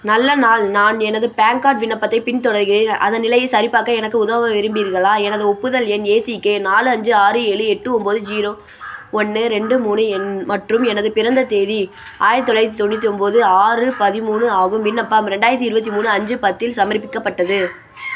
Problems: constant background noise, background conversations at intervals